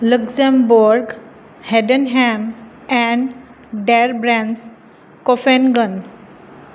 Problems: constant background noise